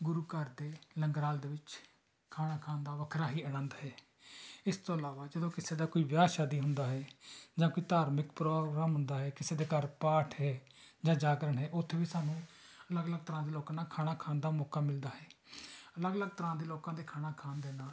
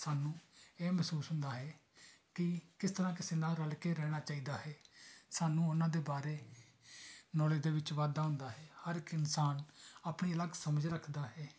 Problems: constant background noise